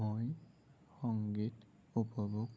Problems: low volume